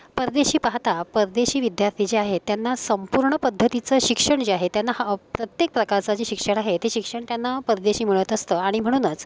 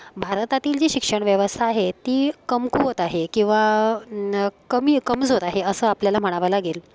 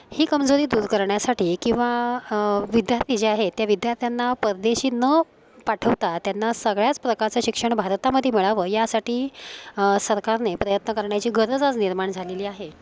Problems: constant background noise, continuous background conversations